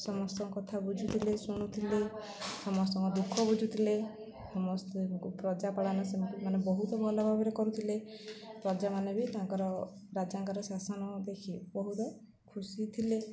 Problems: low volume